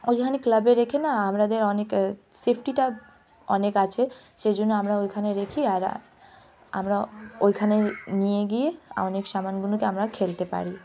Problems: constant background noise, continuous background conversations